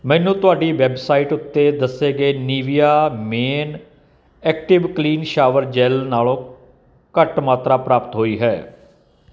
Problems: none marked